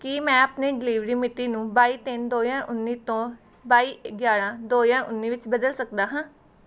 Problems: none marked